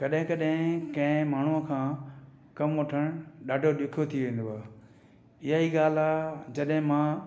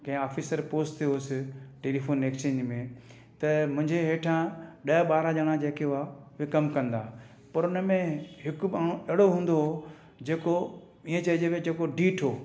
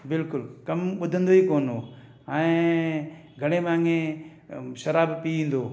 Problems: none marked